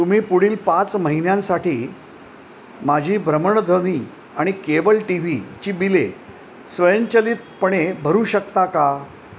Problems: none marked